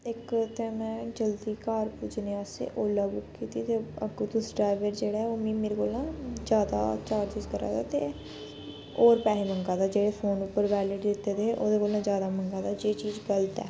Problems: none marked